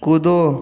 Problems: constant background noise